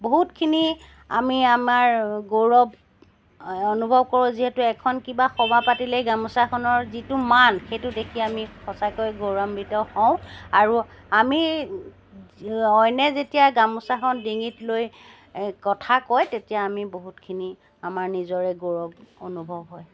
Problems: background sounds at intervals